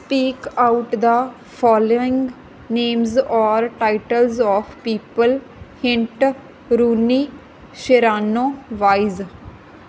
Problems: background sounds at intervals